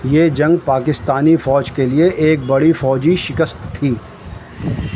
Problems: constant background noise